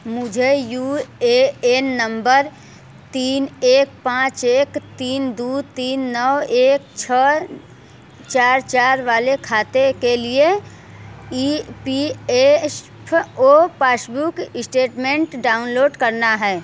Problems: constant background noise